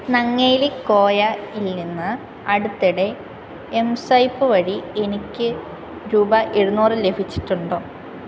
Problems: none marked